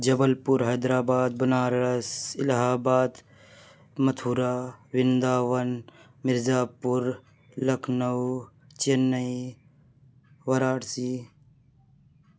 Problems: background sounds at intervals